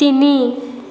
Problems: constant background noise